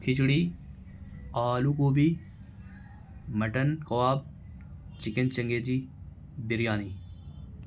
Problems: constant background noise